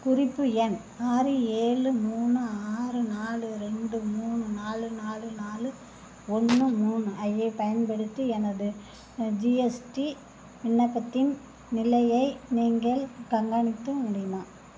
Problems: constant background noise